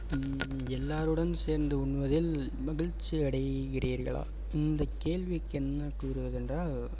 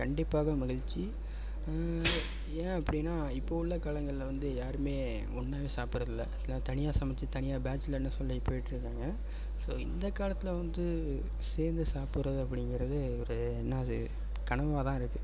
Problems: background sounds at intervals